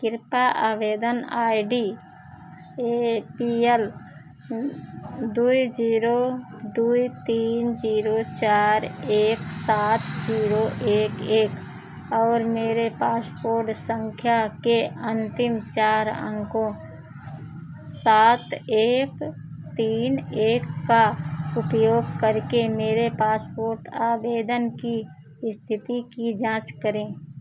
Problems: background sounds at intervals